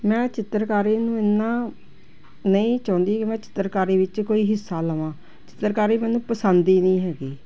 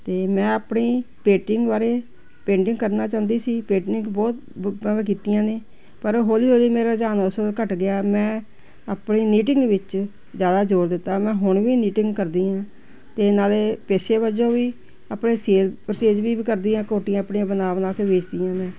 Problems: none marked